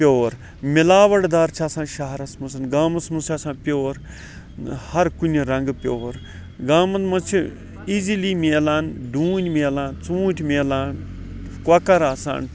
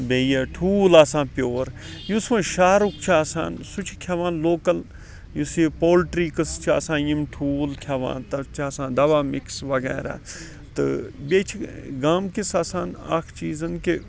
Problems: background sounds at intervals, background conversations at intervals